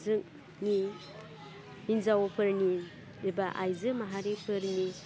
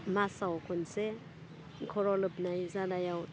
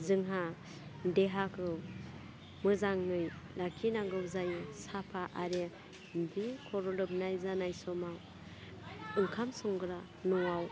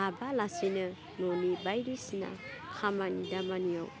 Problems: constant background noise